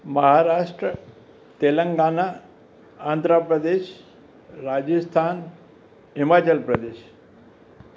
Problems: none marked